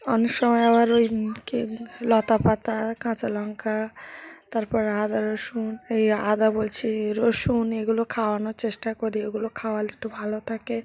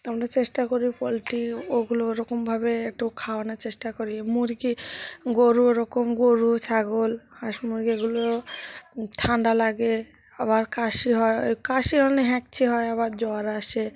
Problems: background sounds at intervals, background conversations at intervals